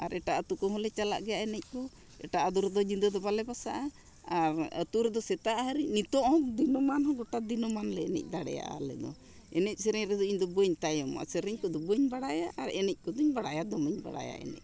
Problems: background sounds at intervals